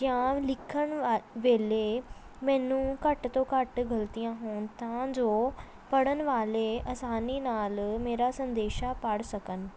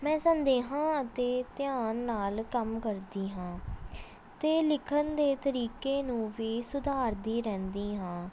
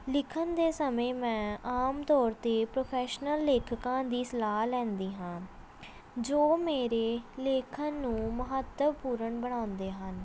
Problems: background sounds at intervals, background conversations at intervals